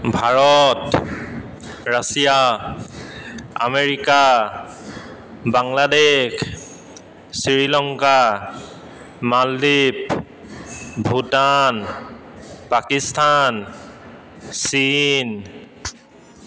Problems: constant background noise, echo